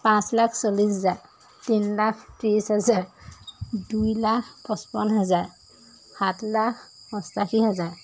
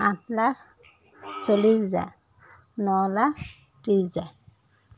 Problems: constant background noise